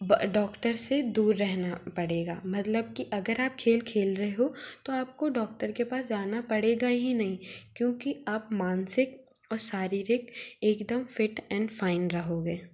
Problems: background sounds at intervals